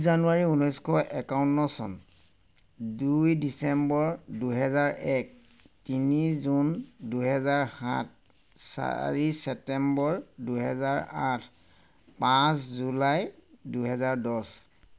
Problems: none marked